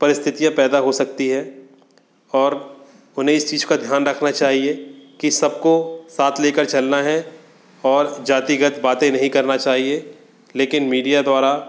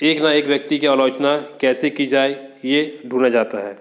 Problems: constant background noise